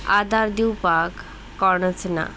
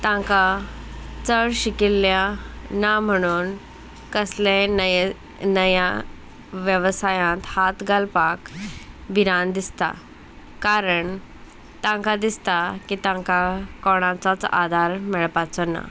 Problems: constant background noise, background conversations at intervals